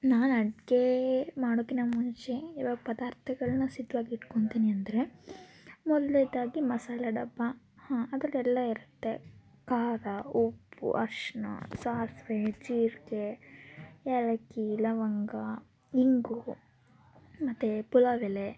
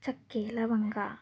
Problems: continuous background conversations